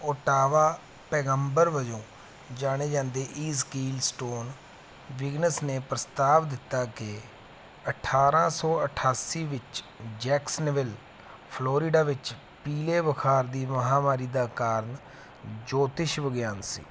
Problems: none marked